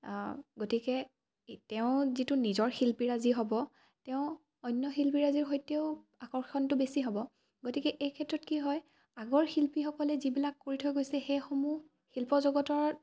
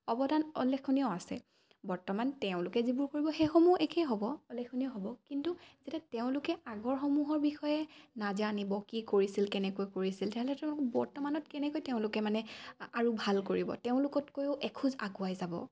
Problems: none marked